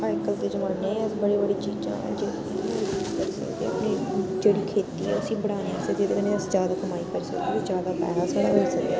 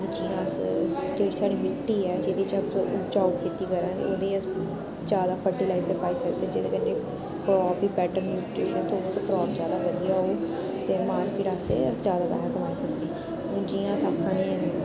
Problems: constant background noise